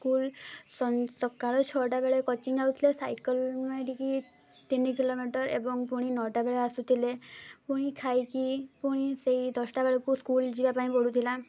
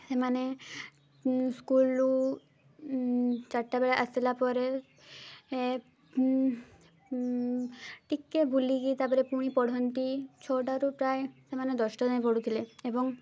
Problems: none marked